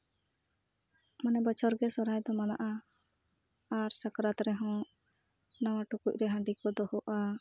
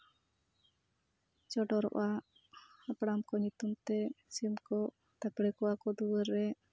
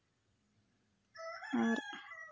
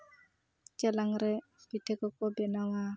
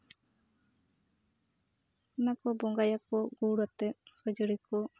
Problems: none marked